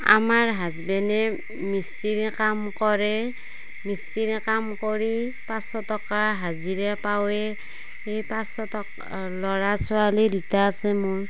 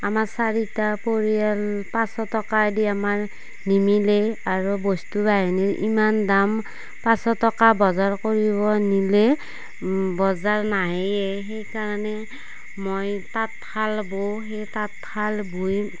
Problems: background sounds at intervals